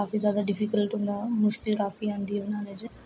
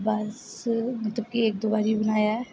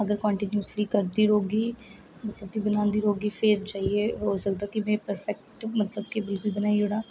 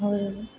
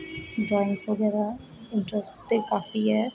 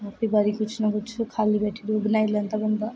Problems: none marked